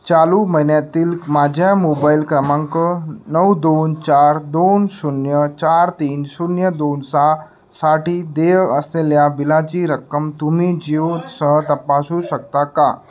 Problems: constant background noise, background conversations at intervals